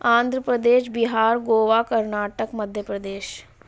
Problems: constant background noise